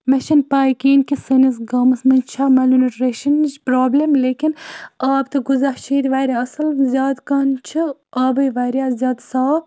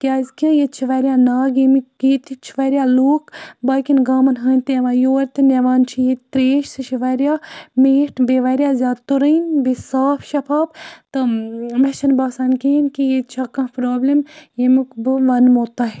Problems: background sounds at intervals